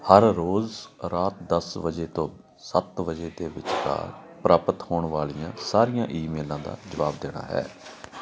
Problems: none marked